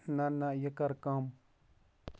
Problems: background sounds at intervals